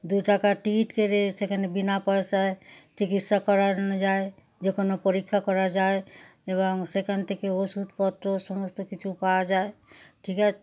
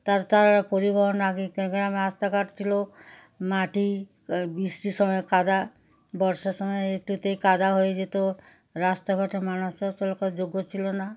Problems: none marked